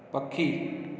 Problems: constant background noise, echo